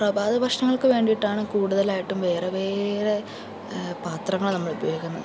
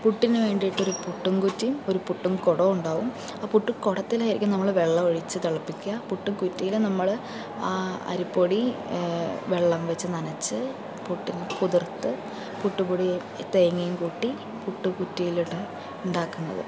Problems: constant background noise